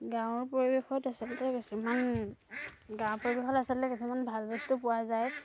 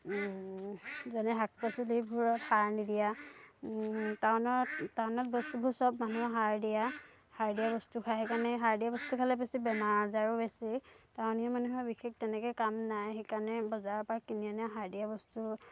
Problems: none marked